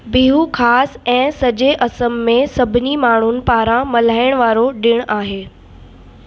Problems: constant background noise, echo